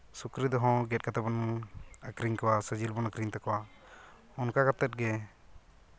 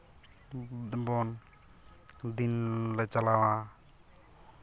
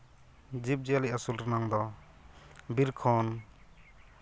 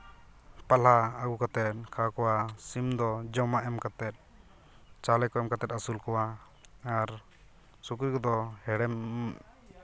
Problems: none marked